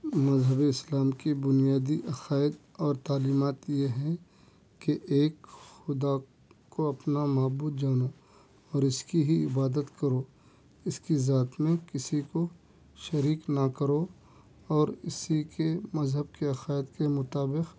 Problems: none marked